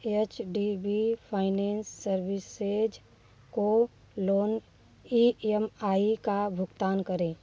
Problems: background sounds at intervals